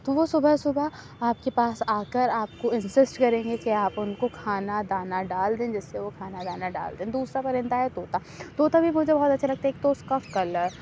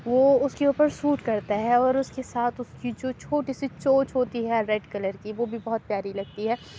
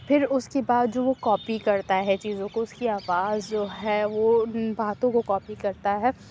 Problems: background sounds at intervals, low volume